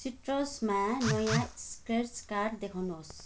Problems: background sounds at intervals